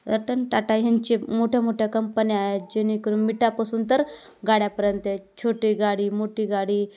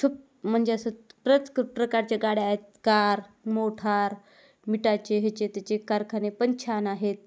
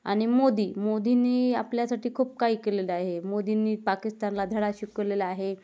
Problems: none marked